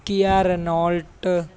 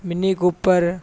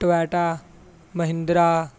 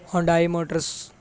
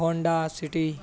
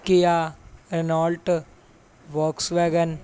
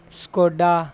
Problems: background sounds at intervals